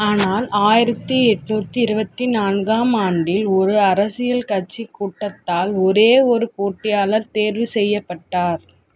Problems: none marked